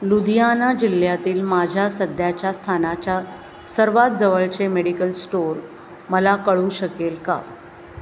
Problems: constant background noise, continuous background conversations